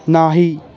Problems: none marked